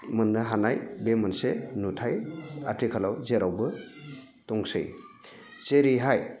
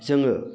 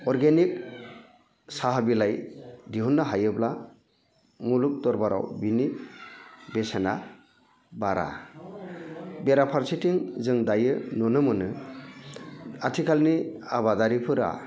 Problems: none marked